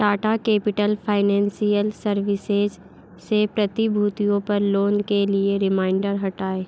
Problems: none marked